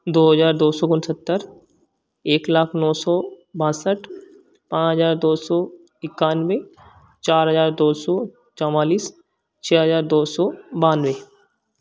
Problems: none marked